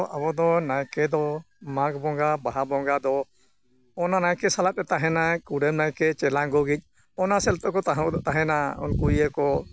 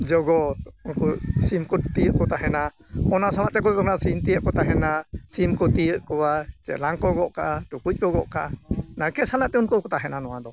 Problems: constant background noise